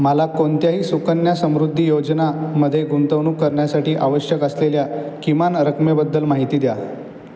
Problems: constant background noise